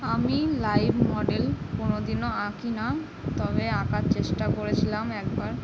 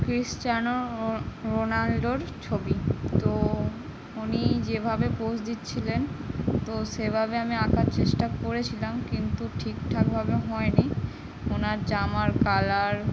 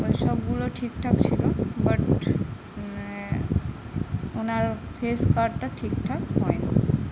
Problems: constant background noise